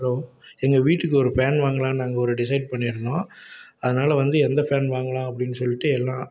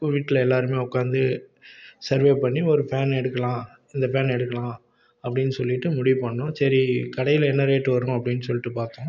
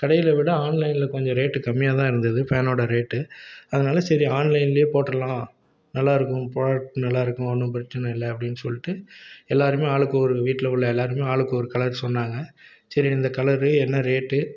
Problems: none marked